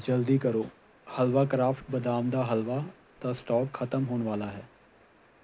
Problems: constant background noise